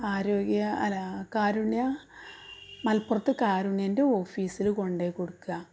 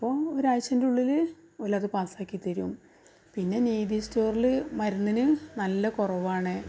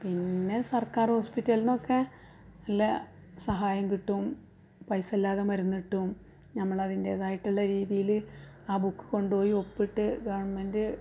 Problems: background sounds at intervals, low volume